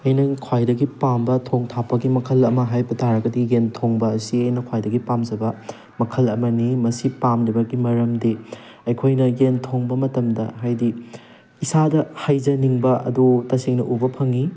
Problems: background sounds at intervals